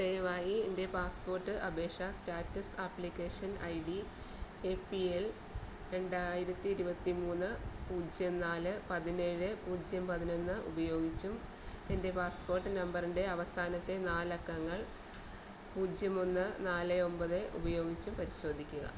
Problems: constant background noise, low volume